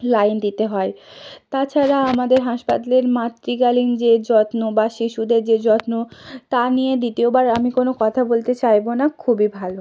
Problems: none marked